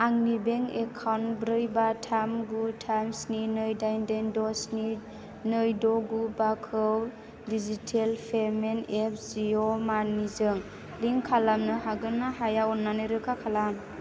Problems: none marked